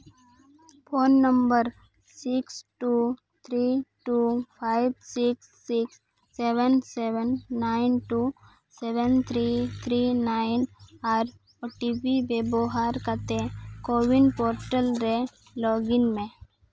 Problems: background sounds at intervals